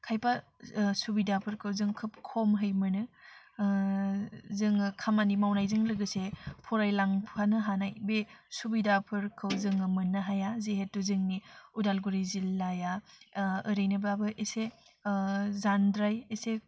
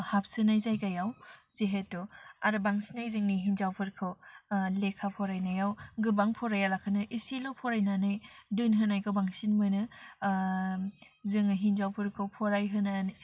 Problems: constant background noise